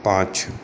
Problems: none marked